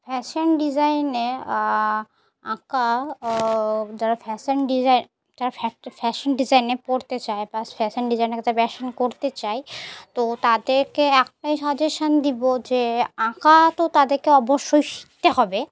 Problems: constant background noise, background conversations at intervals